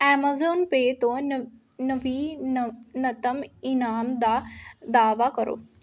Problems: none marked